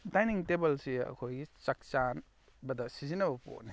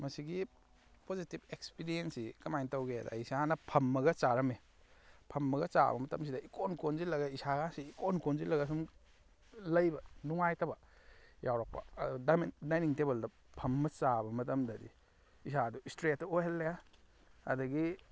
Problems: background sounds at intervals